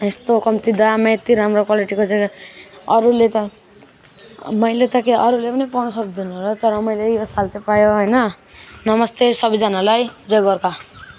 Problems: continuous background conversations